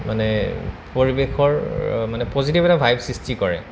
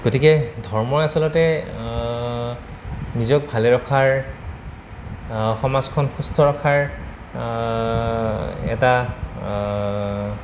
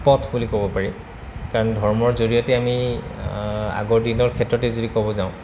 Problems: constant background noise